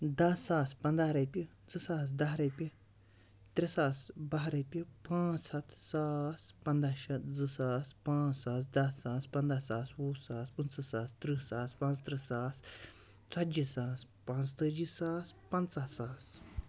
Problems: none marked